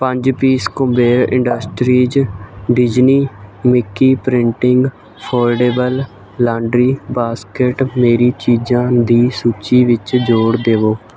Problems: constant background noise